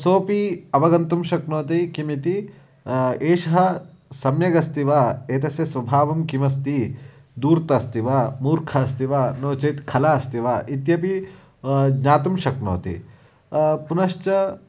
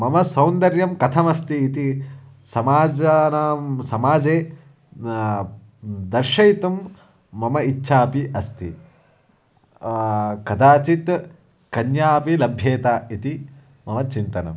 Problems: none marked